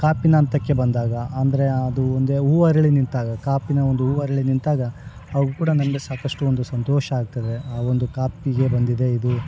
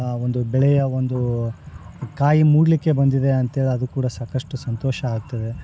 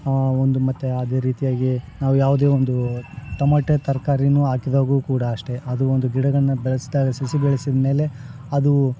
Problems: background sounds at intervals